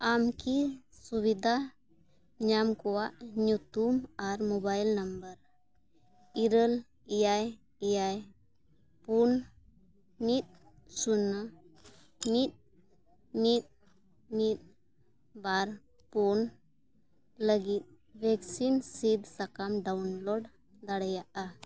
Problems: none marked